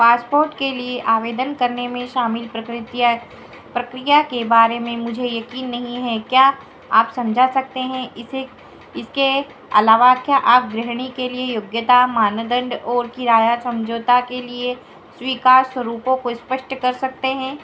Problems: background sounds at intervals, echo